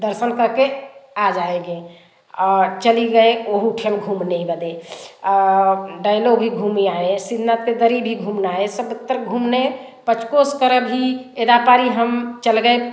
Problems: none marked